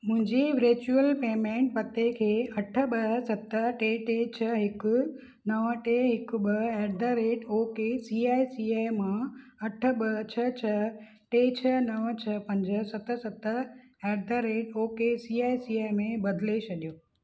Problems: none marked